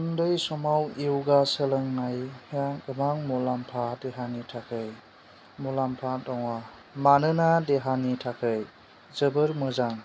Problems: constant background noise